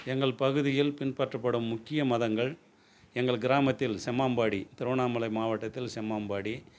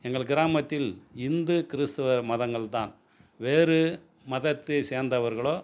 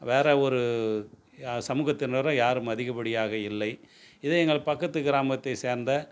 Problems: none marked